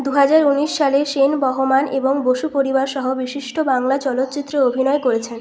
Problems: constant background noise